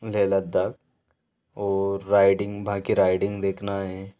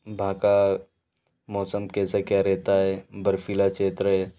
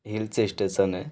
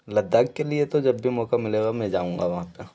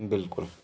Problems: none marked